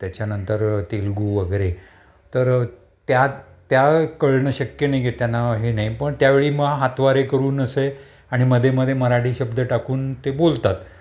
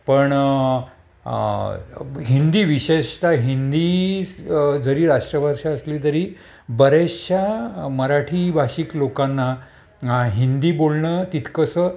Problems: constant background noise